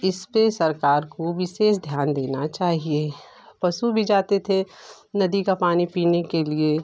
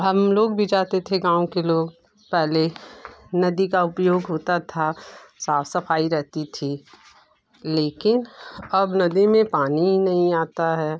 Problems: none marked